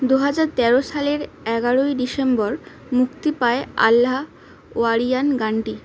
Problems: constant background noise